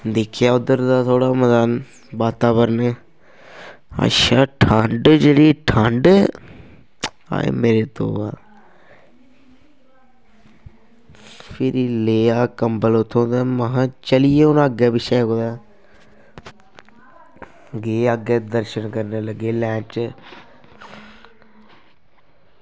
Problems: constant background noise